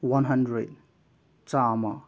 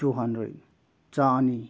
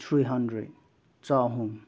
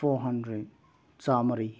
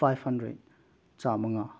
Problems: background sounds at intervals